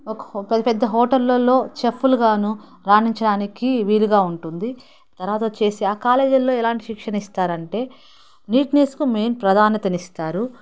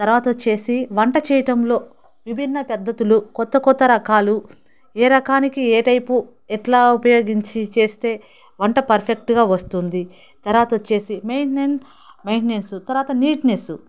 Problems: background sounds at intervals, background conversations at intervals